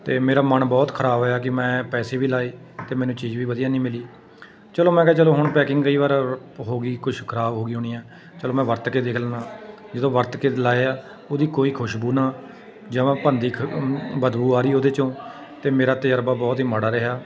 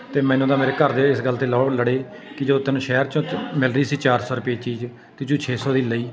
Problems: constant background noise